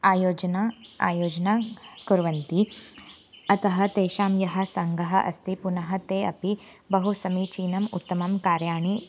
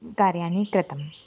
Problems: constant background noise